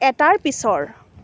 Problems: continuous background conversations